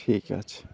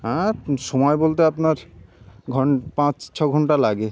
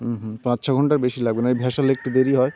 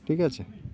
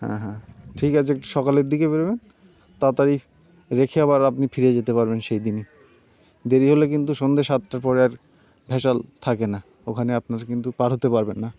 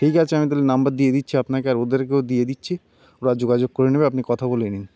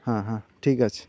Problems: none marked